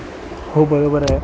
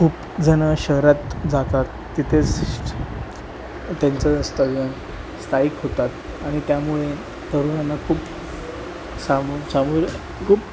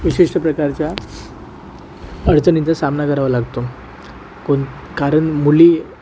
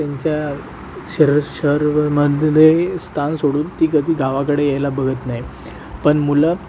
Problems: constant background noise